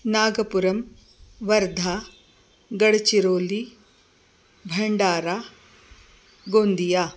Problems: constant background noise